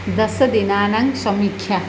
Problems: constant background noise